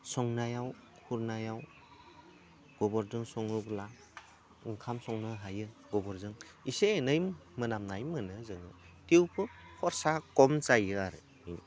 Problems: low volume